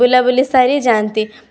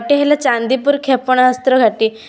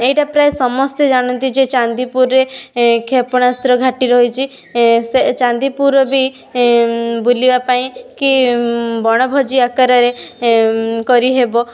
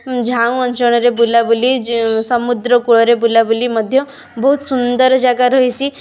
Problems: none marked